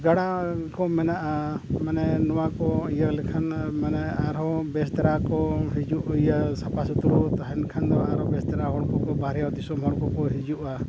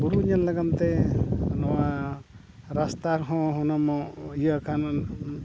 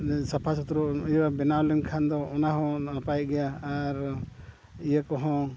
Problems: background sounds at intervals, background conversations at intervals